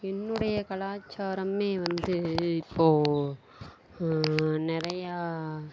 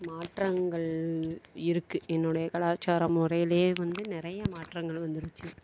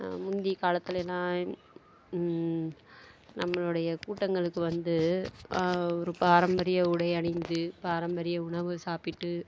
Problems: background sounds at intervals